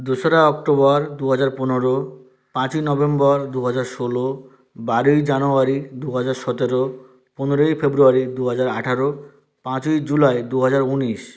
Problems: none marked